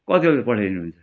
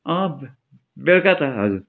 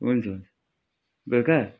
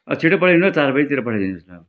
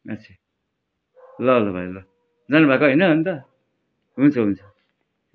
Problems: background sounds at intervals